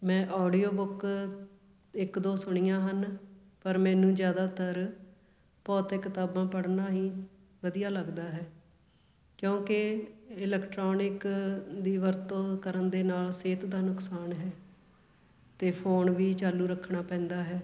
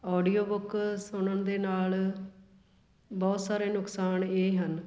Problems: none marked